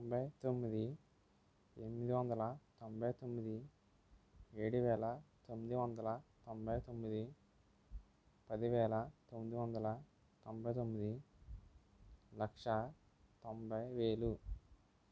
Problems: low volume